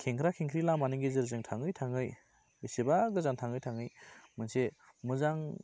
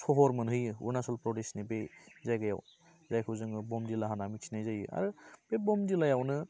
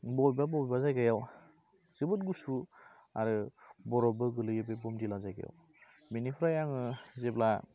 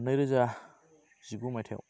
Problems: none marked